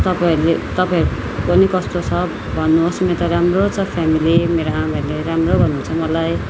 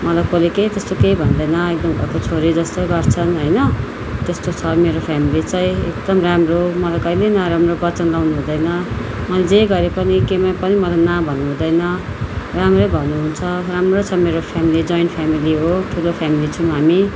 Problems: background sounds at intervals